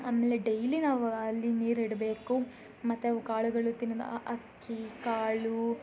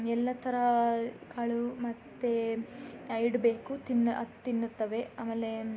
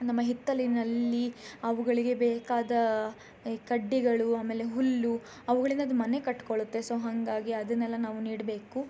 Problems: none marked